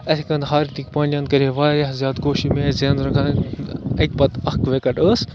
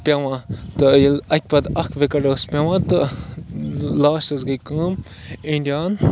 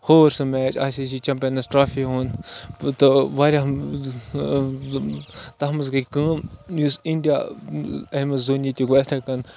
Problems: constant background noise